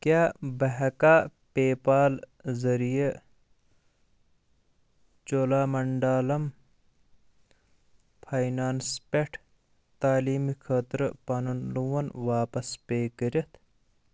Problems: none marked